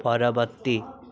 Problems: continuous background conversations